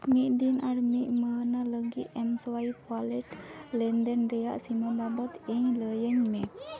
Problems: background sounds at intervals, continuous background conversations